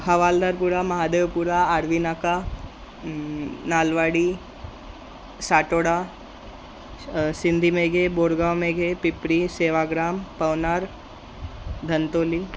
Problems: constant background noise